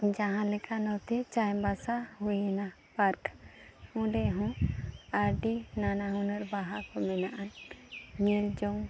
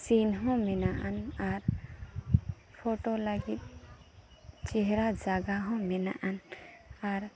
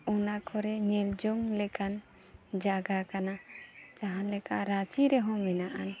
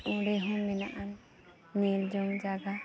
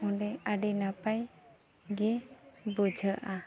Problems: background sounds at intervals, background conversations at intervals